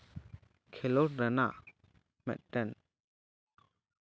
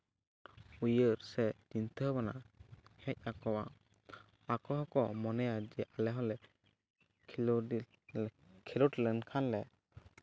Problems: none marked